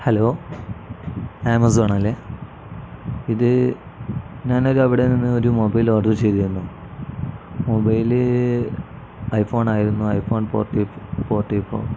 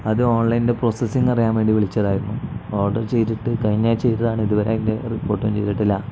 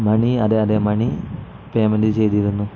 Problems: none marked